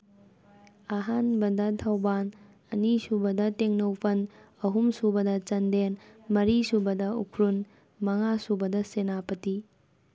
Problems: background conversations at intervals